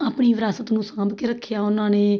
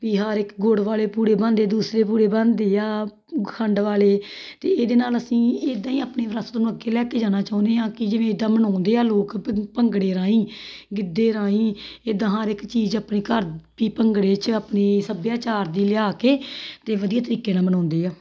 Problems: background sounds at intervals